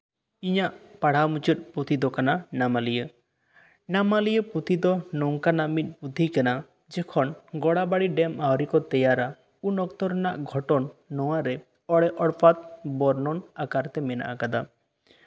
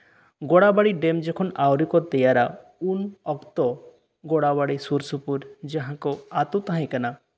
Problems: none marked